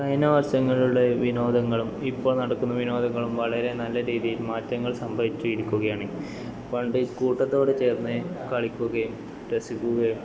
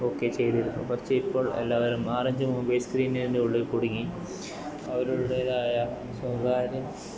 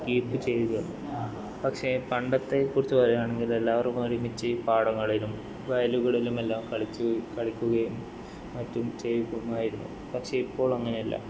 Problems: background sounds at intervals, low volume